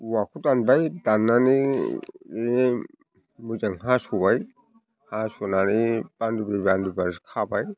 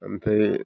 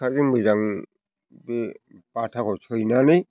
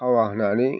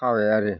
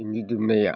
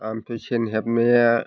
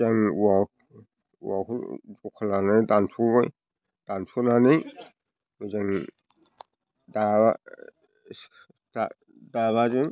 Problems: constant background noise